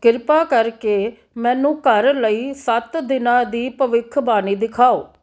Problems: background sounds at intervals